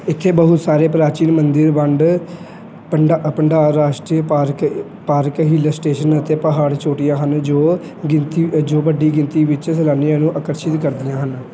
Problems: background sounds at intervals